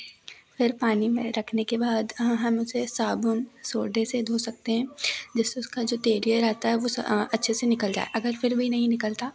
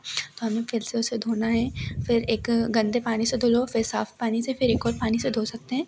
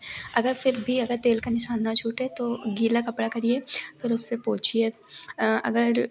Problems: background sounds at intervals